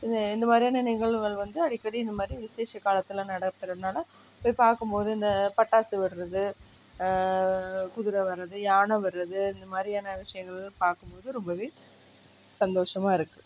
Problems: none marked